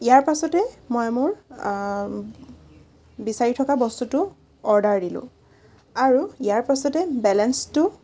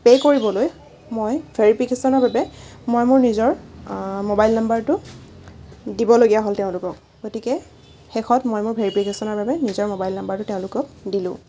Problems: none marked